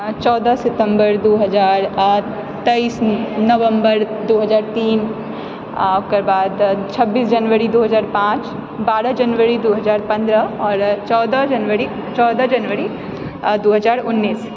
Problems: none marked